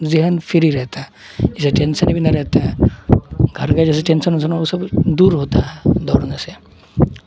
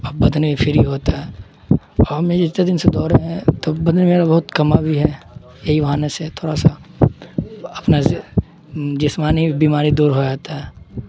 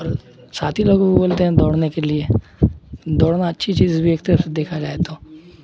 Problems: constant background noise